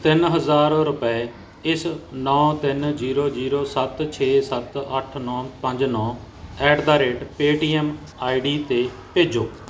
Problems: constant background noise